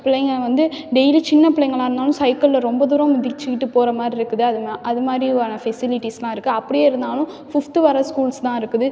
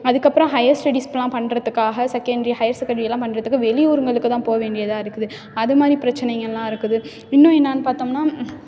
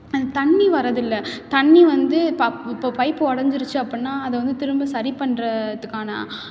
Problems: background sounds at intervals